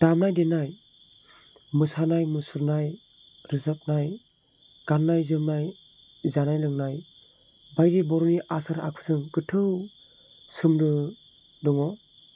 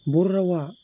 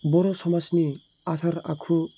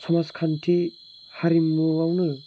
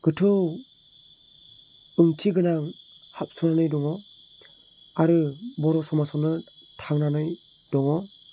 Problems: low volume